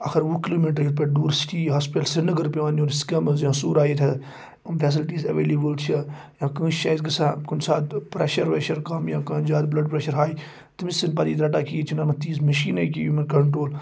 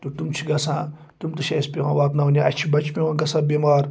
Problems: background sounds at intervals